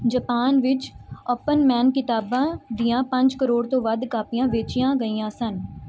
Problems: background sounds at intervals